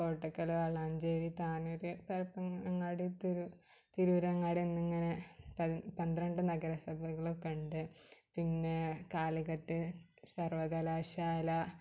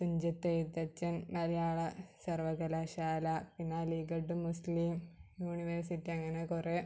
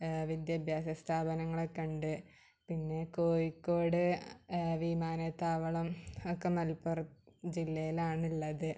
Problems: low volume